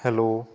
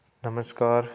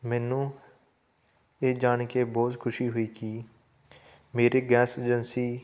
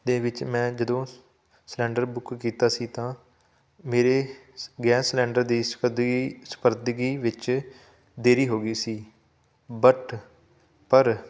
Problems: none marked